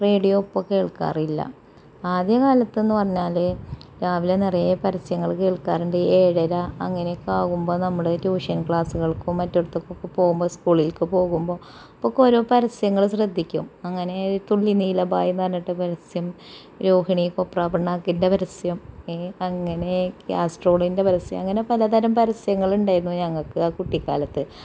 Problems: background sounds at intervals, low volume